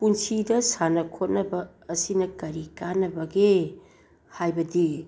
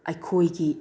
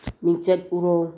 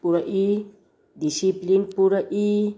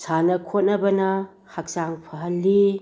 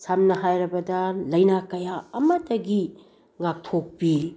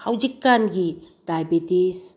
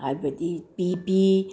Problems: background sounds at intervals